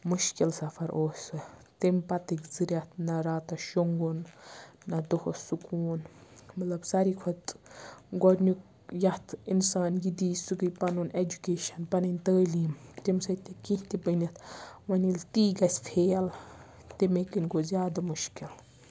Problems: none marked